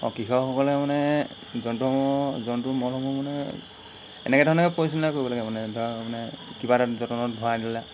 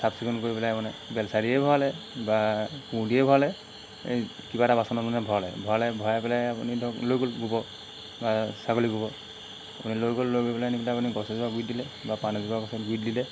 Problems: constant background noise